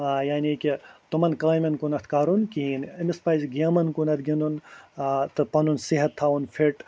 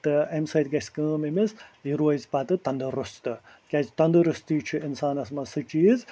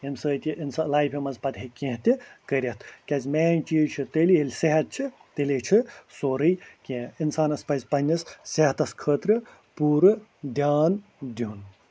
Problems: constant background noise